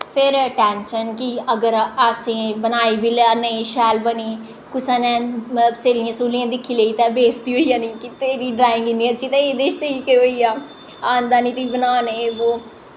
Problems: echo